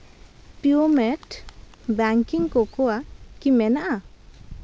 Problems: background sounds at intervals